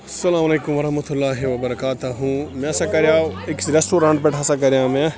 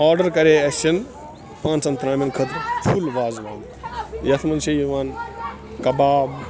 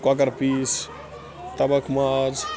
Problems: constant background noise, continuous background conversations